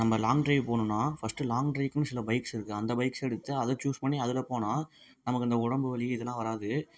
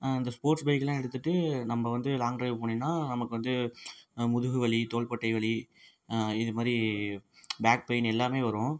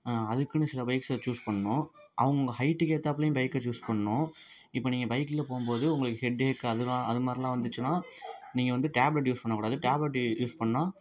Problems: background sounds at intervals, low volume